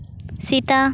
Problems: none marked